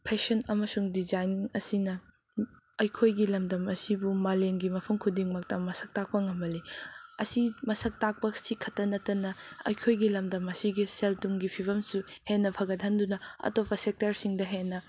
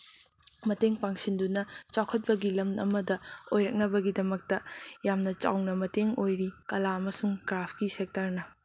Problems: constant background noise